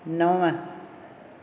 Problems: none marked